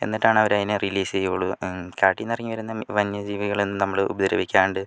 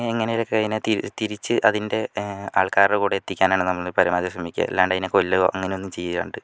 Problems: none marked